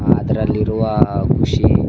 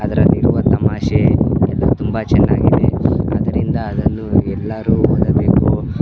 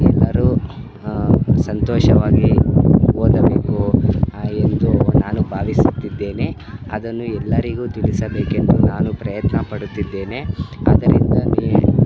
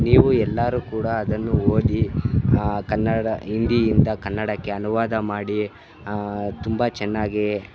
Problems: constant background noise